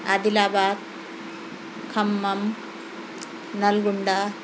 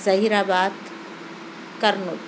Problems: constant background noise